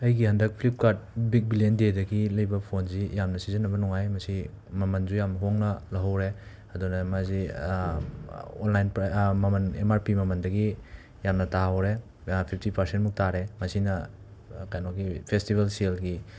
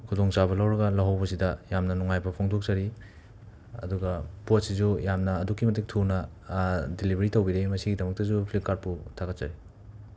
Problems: constant background noise